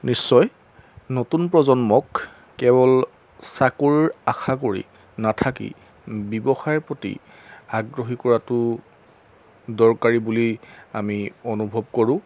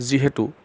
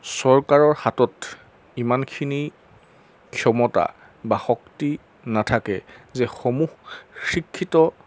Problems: background sounds at intervals